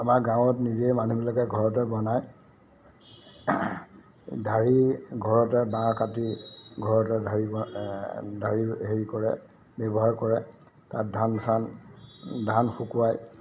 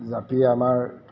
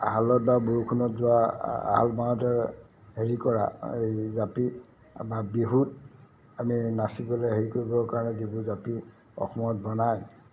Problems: constant background noise